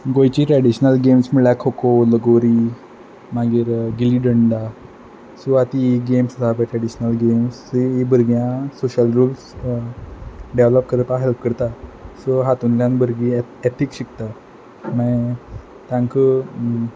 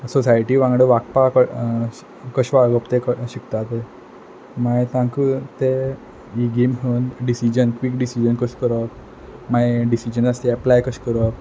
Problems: background sounds at intervals